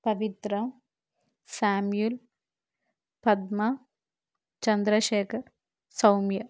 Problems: none marked